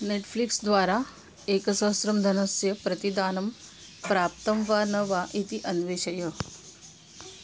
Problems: constant background noise